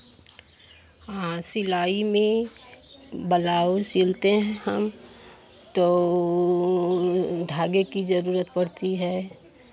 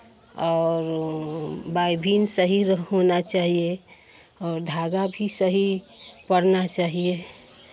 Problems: constant background noise, background conversations at intervals